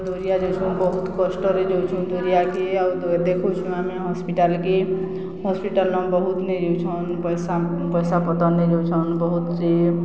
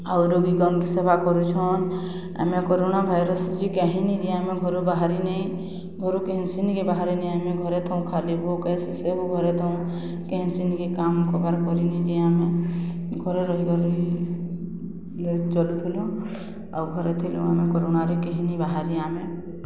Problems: constant background noise